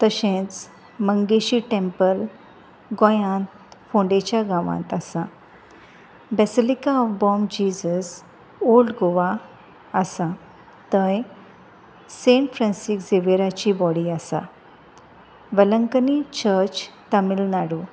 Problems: none marked